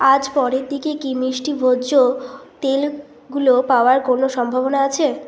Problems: constant background noise